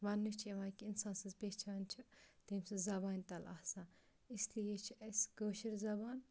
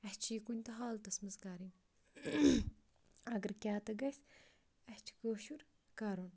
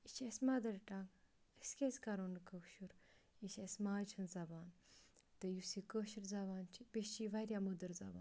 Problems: background sounds at intervals, low volume